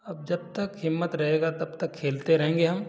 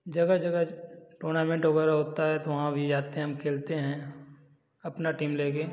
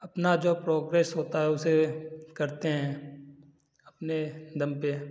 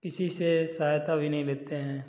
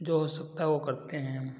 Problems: none marked